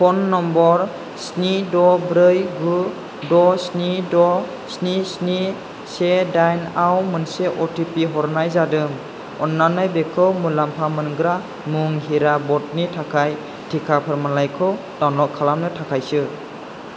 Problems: constant background noise